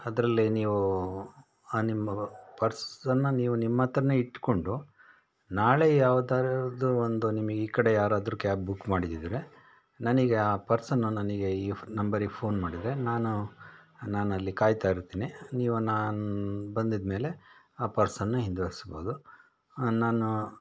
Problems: none marked